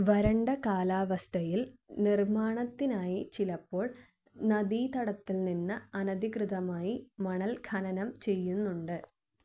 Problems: low volume